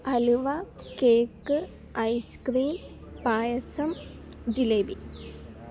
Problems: background sounds at intervals